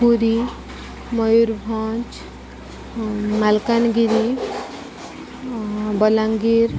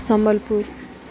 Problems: constant background noise